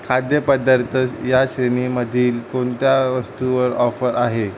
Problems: constant background noise